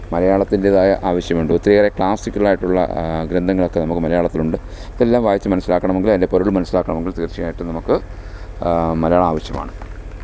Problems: background sounds at intervals